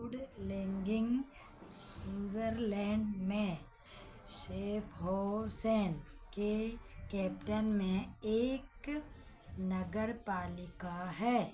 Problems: none marked